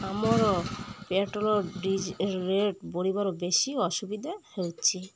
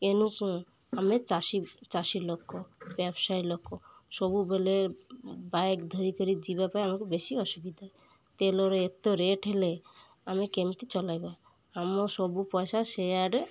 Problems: none marked